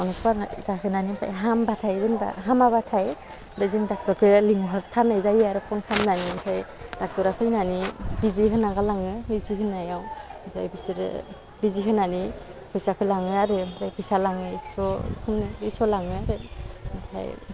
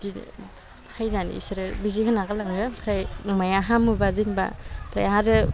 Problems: low volume